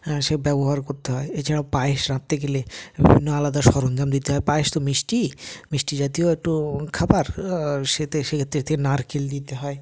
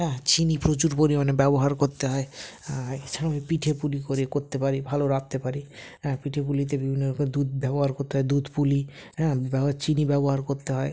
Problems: background sounds at intervals